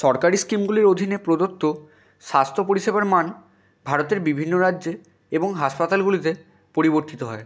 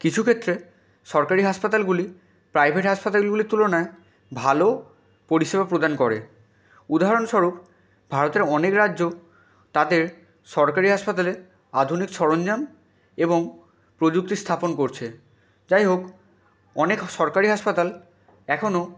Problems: background sounds at intervals